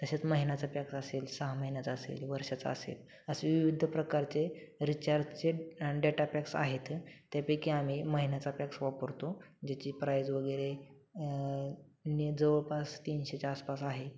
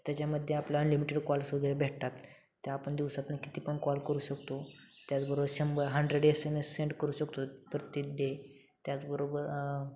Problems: constant background noise, continuous background conversations